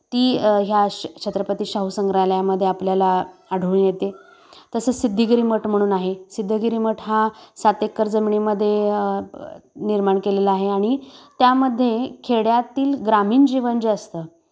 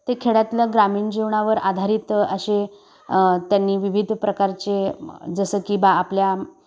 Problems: constant background noise, background conversations at intervals